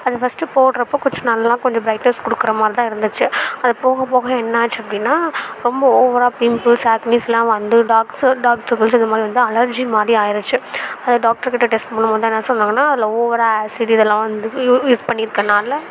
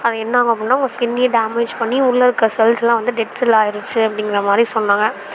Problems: background sounds at intervals, background conversations at intervals